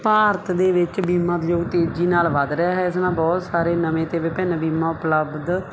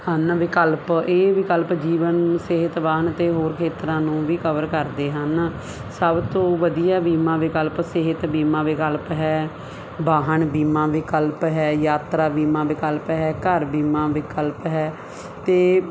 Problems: constant background noise